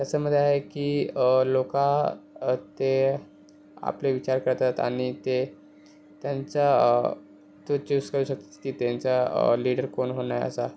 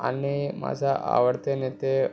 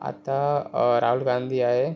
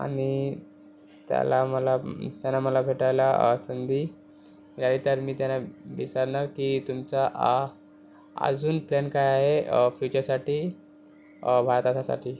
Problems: none marked